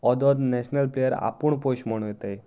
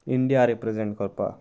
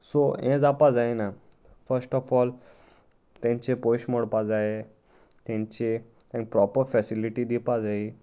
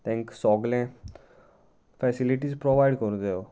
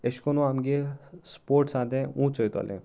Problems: none marked